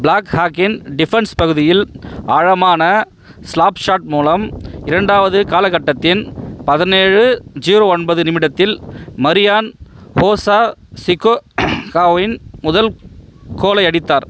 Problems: background sounds at intervals